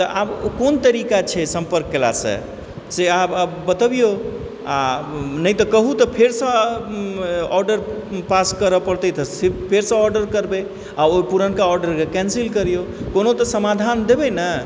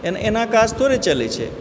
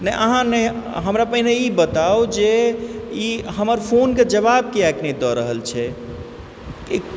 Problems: background sounds at intervals